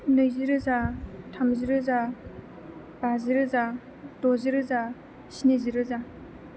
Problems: constant background noise